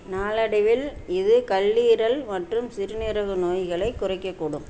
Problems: none marked